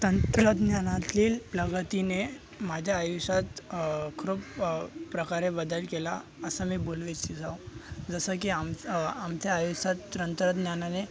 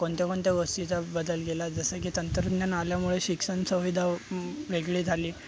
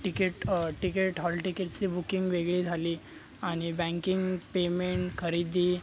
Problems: constant background noise, continuous background conversations